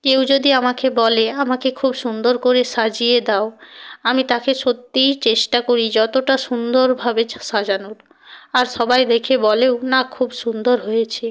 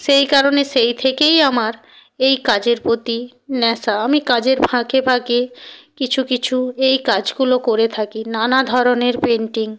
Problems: constant background noise